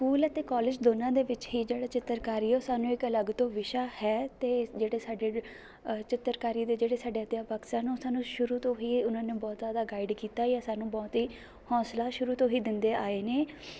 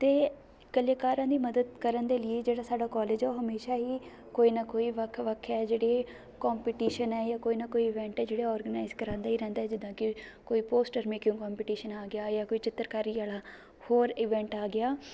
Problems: constant background noise